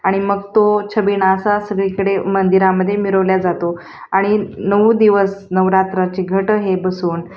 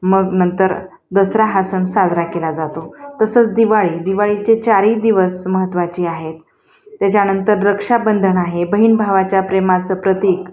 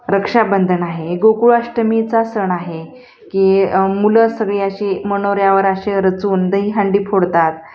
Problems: constant background noise, background conversations at intervals, echo